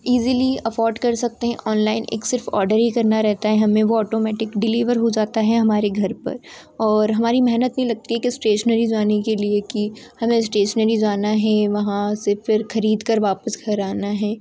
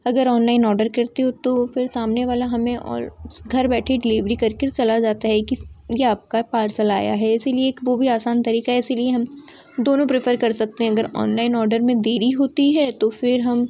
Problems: constant background noise